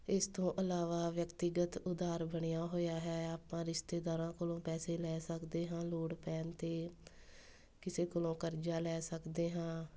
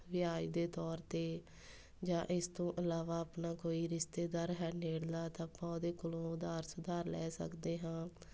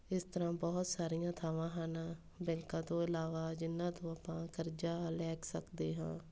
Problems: none marked